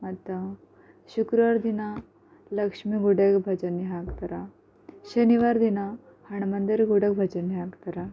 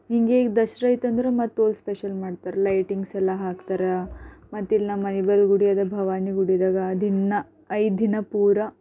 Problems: none marked